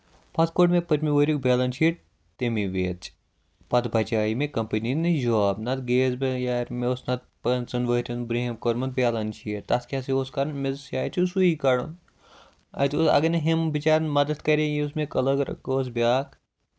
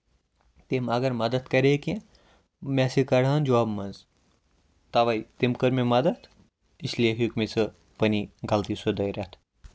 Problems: constant background noise